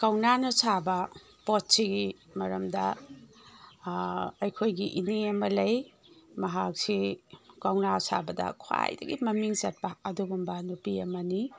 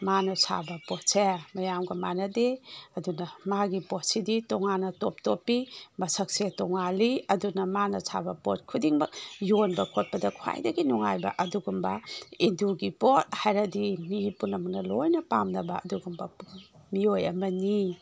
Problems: background sounds at intervals